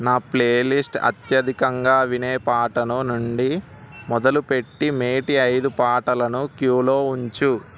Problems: constant background noise